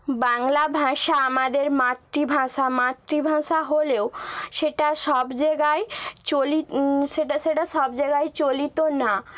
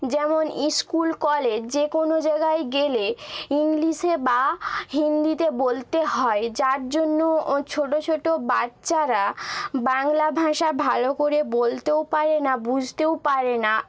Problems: none marked